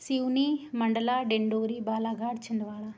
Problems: none marked